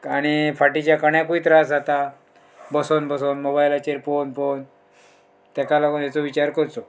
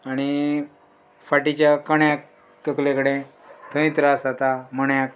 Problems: background sounds at intervals